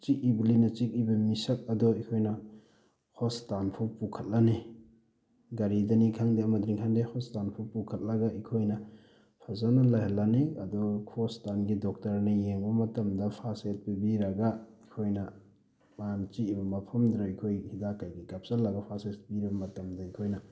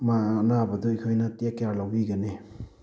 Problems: none marked